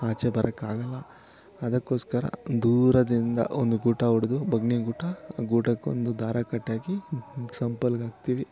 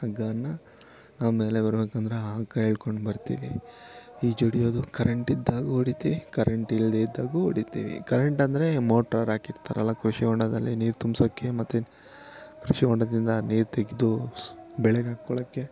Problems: constant background noise, continuous background conversations